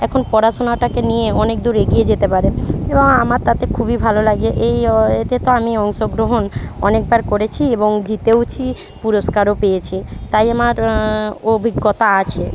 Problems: background sounds at intervals, background conversations at intervals